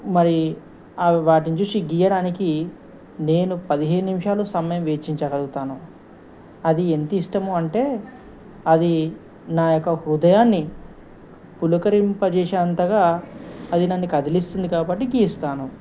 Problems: constant background noise